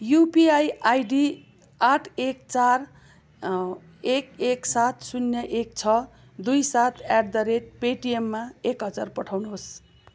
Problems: background sounds at intervals